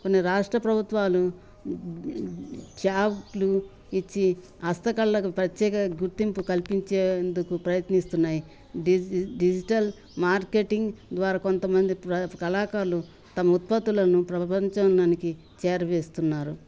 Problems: none marked